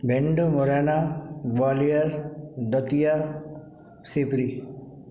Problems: none marked